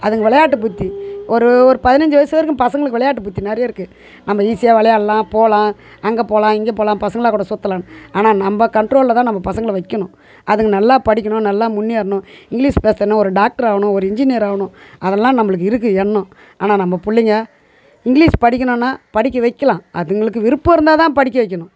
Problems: none marked